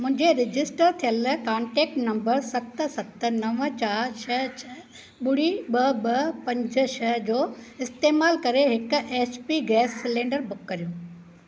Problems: none marked